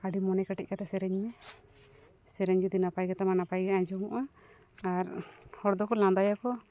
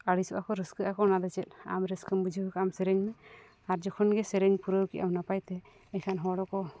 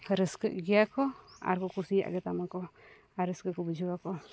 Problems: none marked